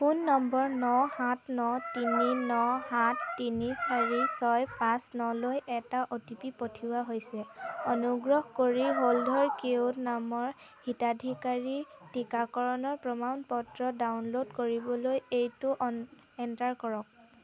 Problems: constant background noise